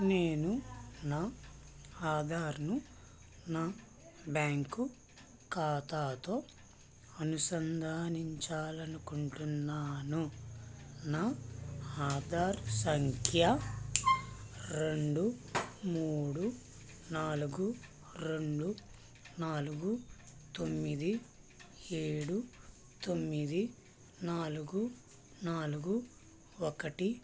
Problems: none marked